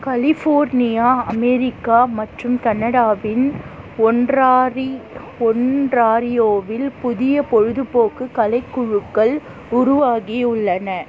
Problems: constant background noise